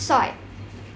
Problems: none marked